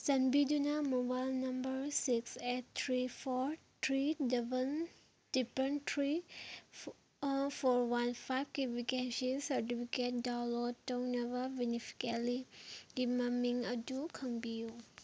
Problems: background sounds at intervals